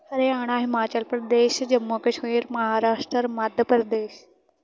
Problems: continuous background conversations